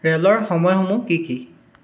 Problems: none marked